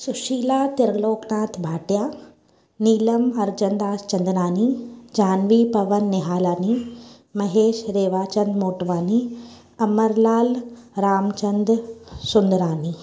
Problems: echo